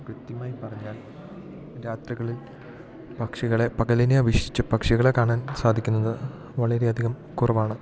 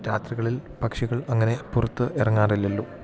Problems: low volume